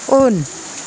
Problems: constant background noise